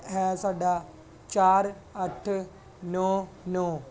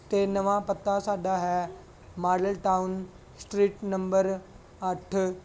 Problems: background sounds at intervals